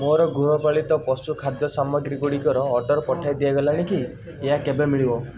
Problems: background sounds at intervals, background conversations at intervals